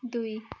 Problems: background sounds at intervals